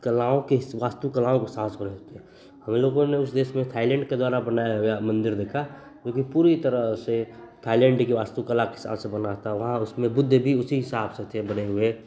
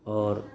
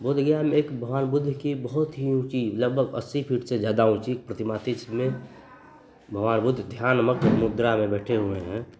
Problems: constant background noise, continuous background conversations